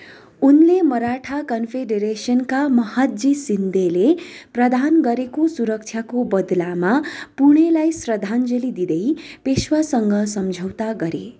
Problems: background sounds at intervals